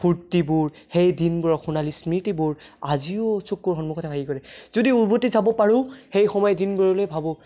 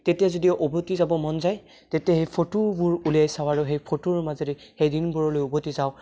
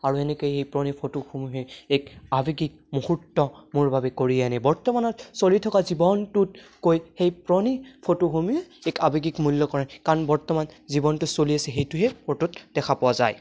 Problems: none marked